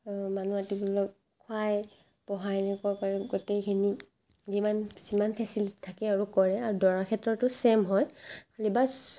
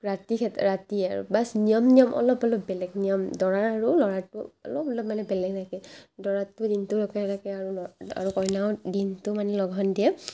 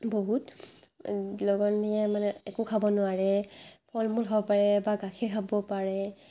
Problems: constant background noise, background conversations at intervals